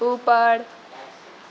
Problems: background sounds at intervals, low volume